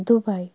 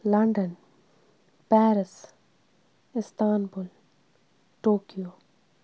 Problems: none marked